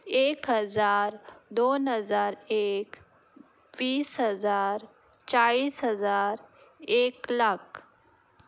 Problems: background sounds at intervals